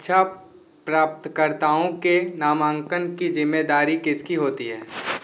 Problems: constant background noise